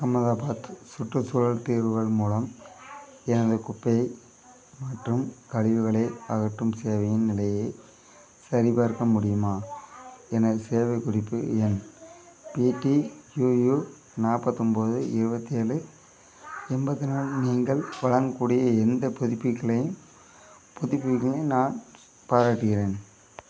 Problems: constant background noise, continuous background conversations